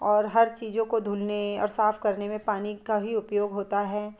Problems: background sounds at intervals